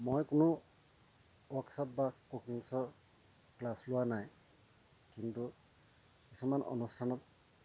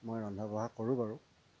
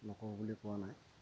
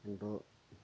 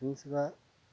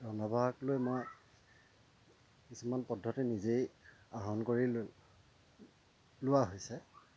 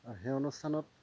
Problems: constant background noise